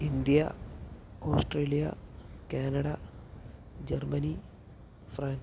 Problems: constant background noise, low volume